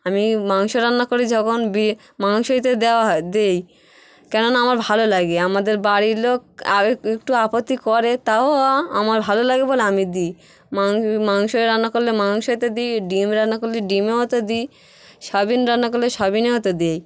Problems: none marked